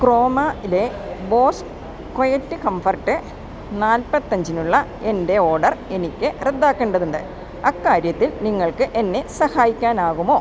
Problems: constant background noise